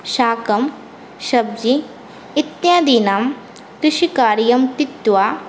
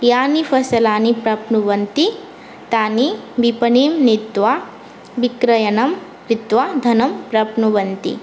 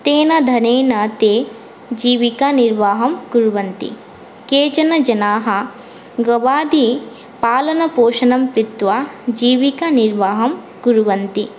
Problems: none marked